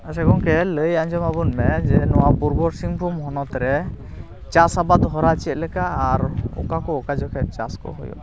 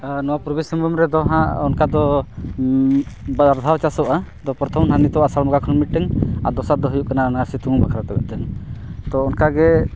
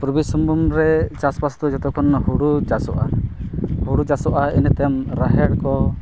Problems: none marked